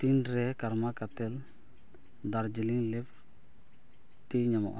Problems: low volume